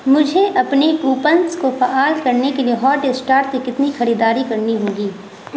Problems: constant background noise